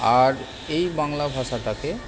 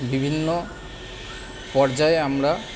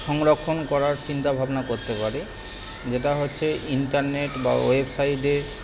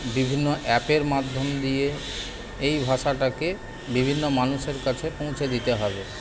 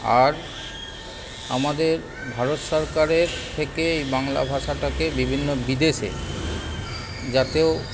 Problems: constant background noise, continuous background conversations